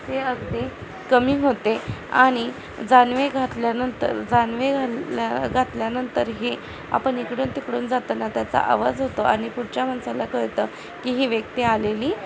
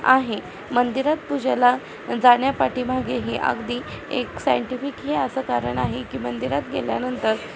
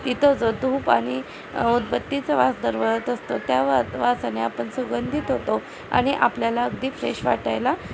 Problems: constant background noise, background conversations at intervals